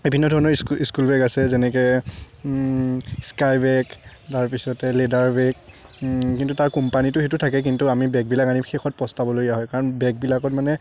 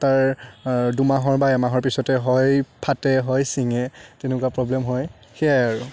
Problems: none marked